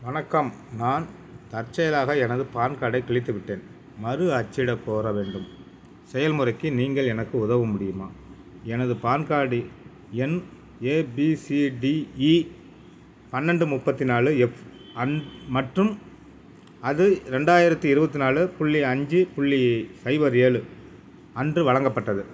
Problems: none marked